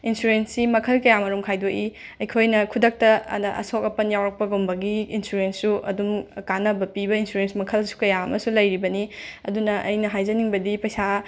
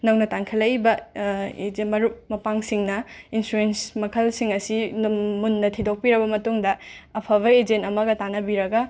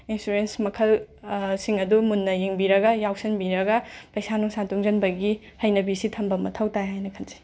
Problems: none marked